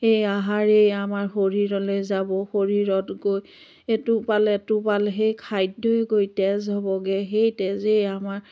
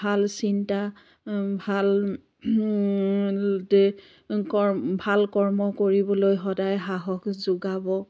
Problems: constant background noise